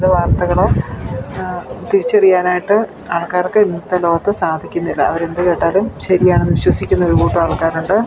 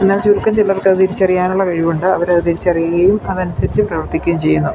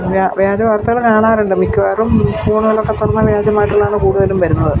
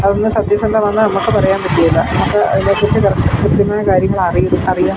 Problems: constant background noise